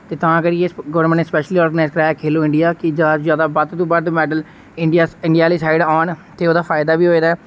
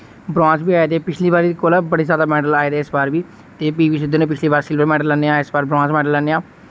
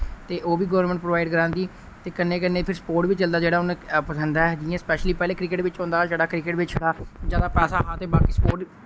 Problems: none marked